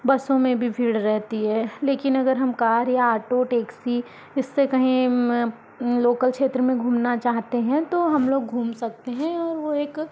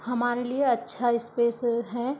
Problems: constant background noise, background conversations at intervals